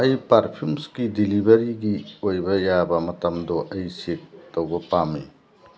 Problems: background sounds at intervals